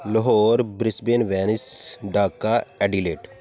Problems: background sounds at intervals